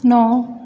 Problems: none marked